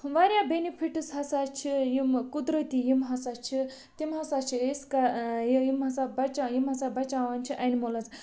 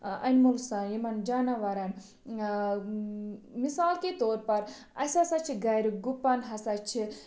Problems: constant background noise